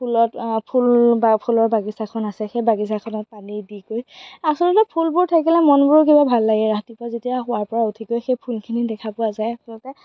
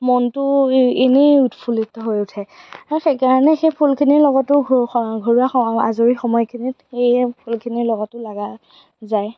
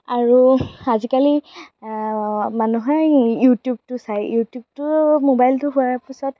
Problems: background sounds at intervals, background conversations at intervals